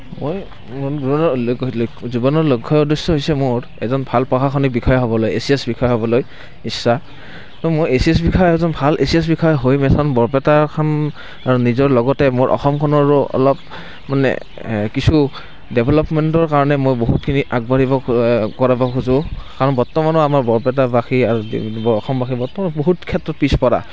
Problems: constant background noise